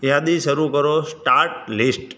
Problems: none marked